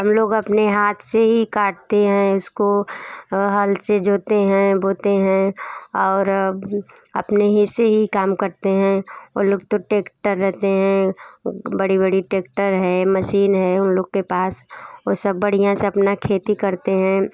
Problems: none marked